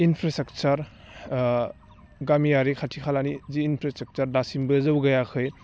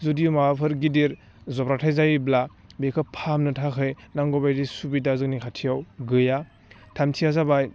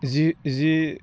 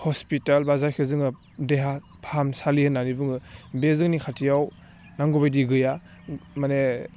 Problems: low volume